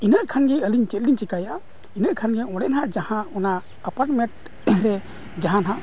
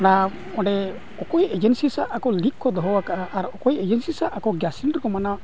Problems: constant background noise, low volume